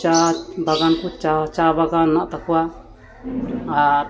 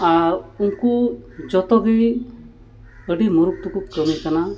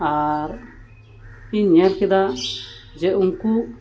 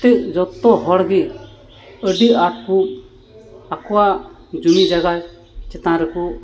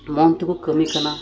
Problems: constant background noise